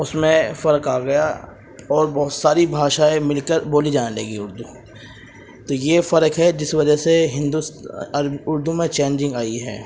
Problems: constant background noise